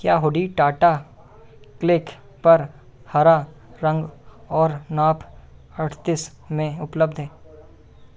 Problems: none marked